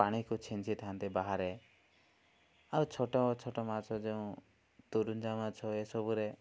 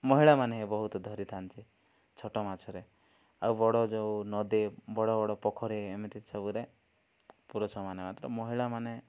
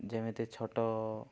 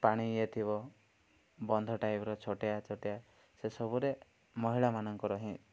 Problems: none marked